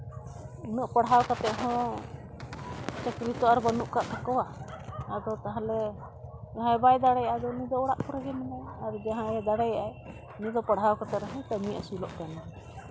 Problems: constant background noise